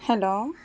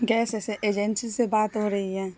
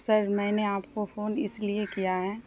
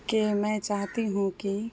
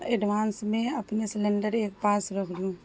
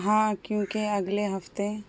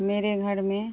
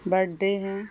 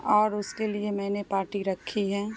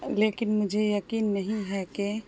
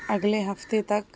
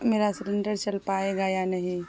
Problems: constant background noise